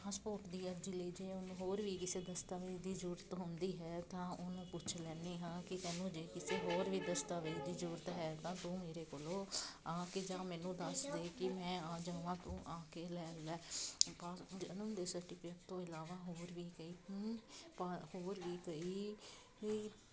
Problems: constant background noise, continuous background conversations